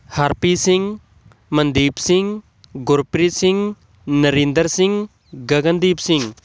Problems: none marked